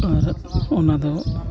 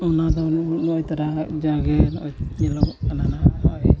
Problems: background sounds at intervals, continuous background conversations, low volume